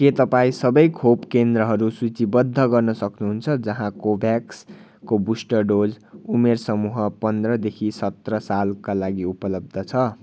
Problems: none marked